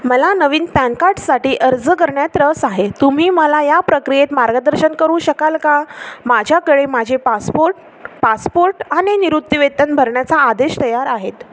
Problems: constant background noise